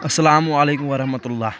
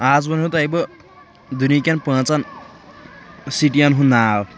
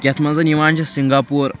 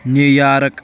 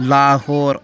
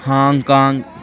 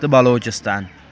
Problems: background sounds at intervals, background conversations at intervals